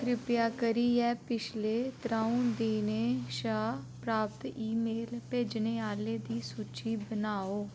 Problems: none marked